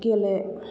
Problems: echo